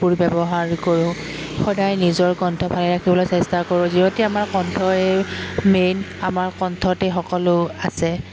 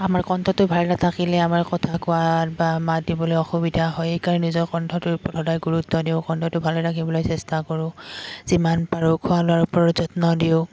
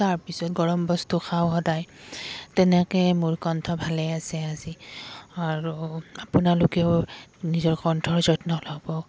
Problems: background sounds at intervals